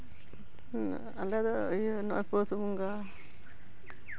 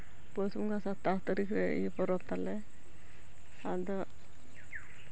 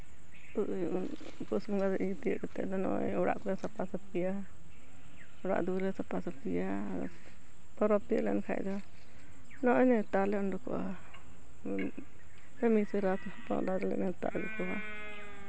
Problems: none marked